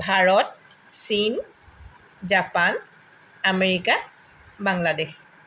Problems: none marked